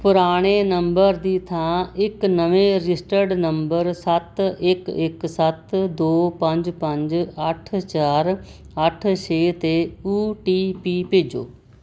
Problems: none marked